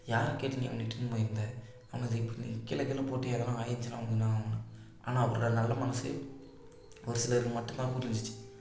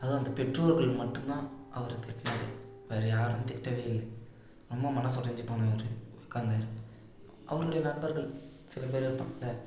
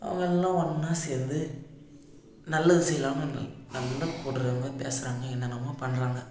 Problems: low volume